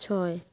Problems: constant background noise